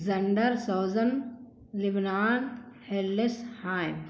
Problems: constant background noise